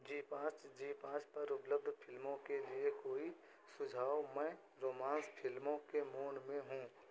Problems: constant background noise